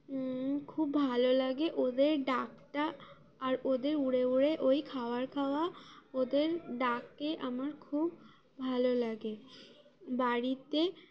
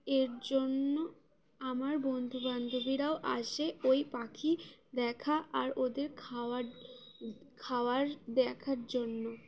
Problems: none marked